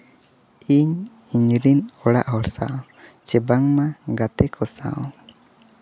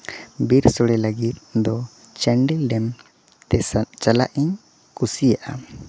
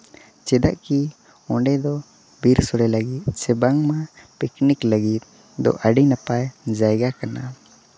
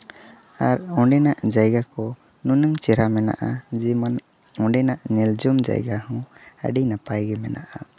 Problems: background sounds at intervals, background conversations at intervals